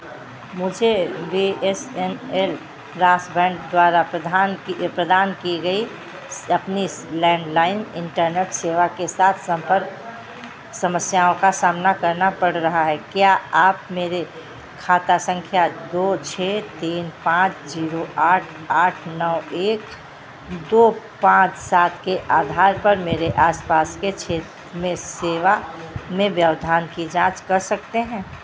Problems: constant background noise